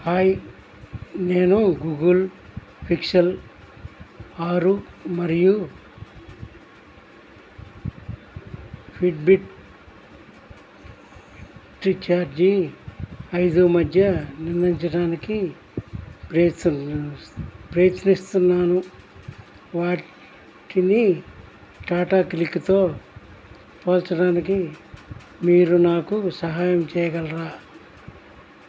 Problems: constant background noise